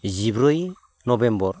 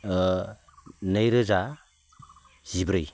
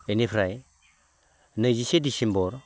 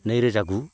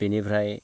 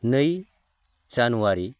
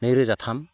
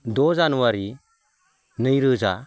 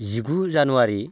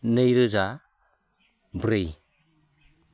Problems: low volume